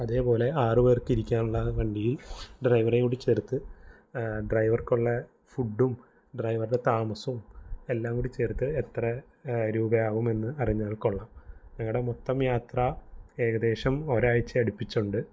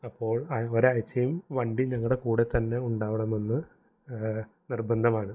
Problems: none marked